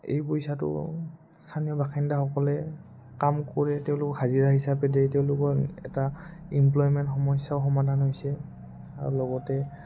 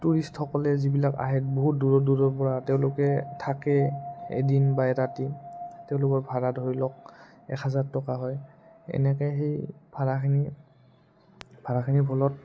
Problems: low volume